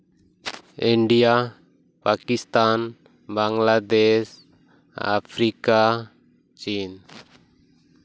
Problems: constant background noise